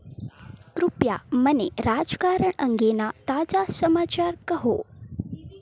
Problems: none marked